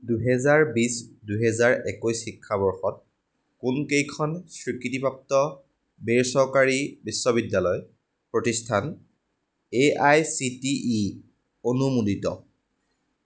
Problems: none marked